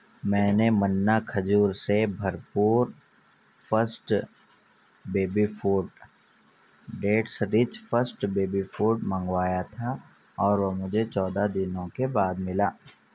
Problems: none marked